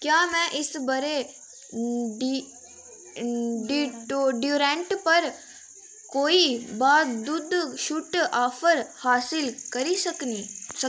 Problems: constant background noise